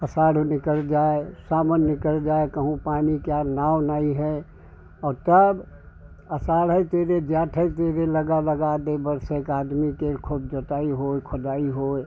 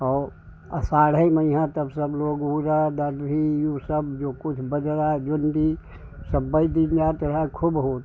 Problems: none marked